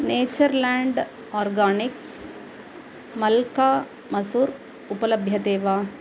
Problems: none marked